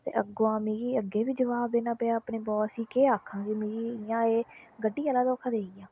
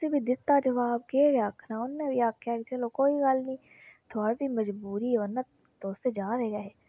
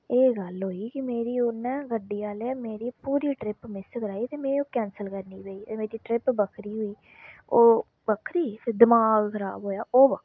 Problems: constant background noise